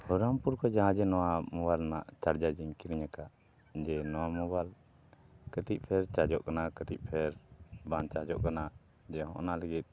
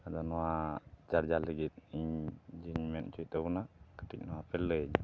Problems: background sounds at intervals, low volume